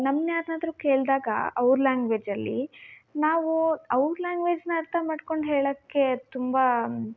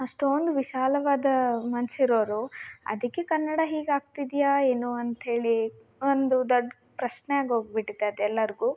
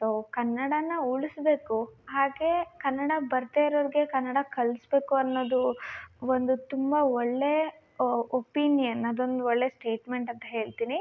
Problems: none marked